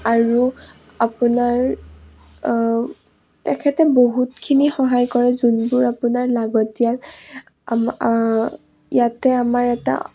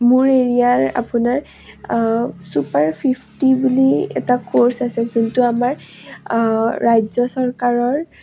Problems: low volume